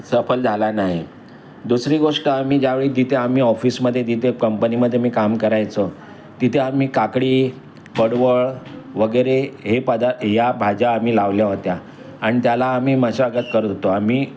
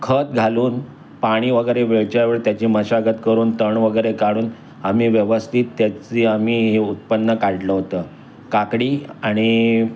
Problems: none marked